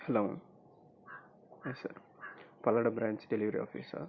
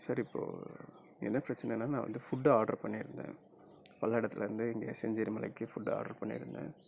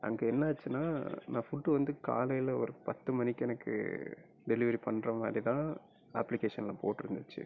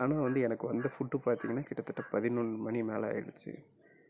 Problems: low volume